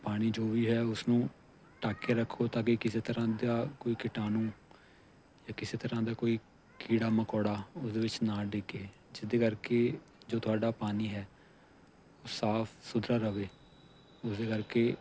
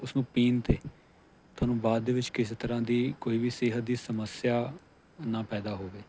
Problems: none marked